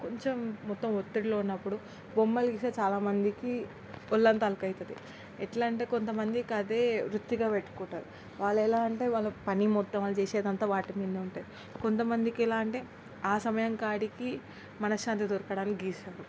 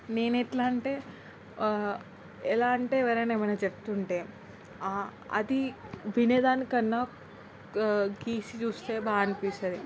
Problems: constant background noise, background conversations at intervals